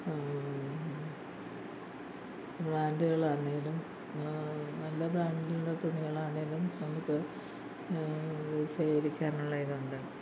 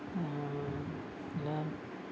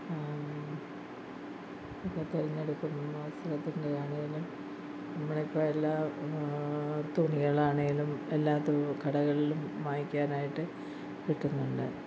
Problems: low volume